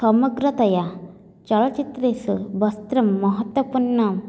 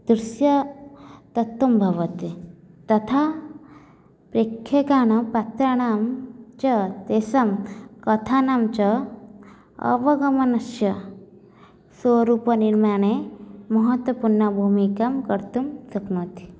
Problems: none marked